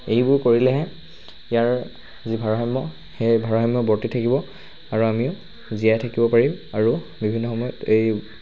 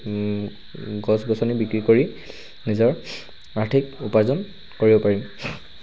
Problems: constant background noise